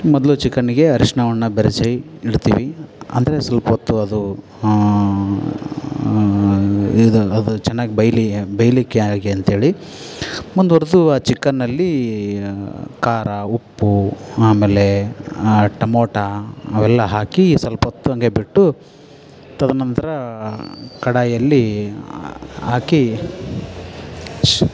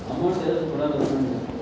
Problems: background sounds at intervals